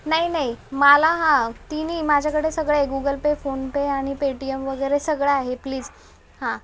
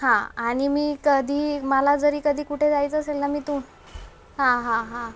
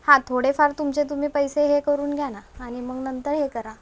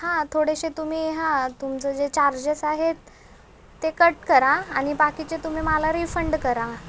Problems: background sounds at intervals, background conversations at intervals